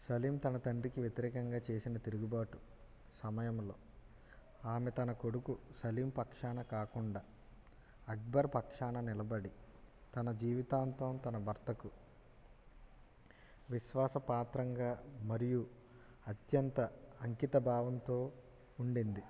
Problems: low volume